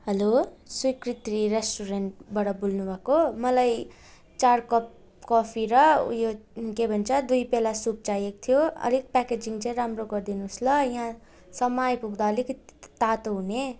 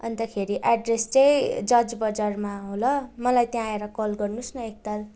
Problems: constant background noise